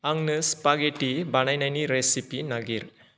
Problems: none marked